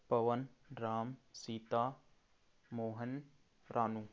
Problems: background sounds at intervals